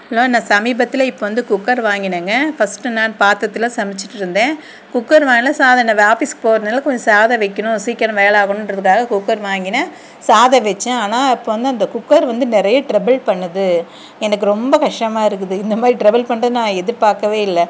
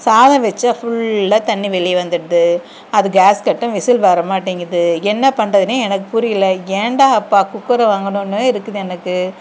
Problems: none marked